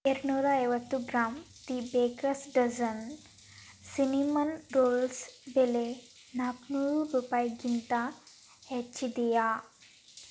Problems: constant background noise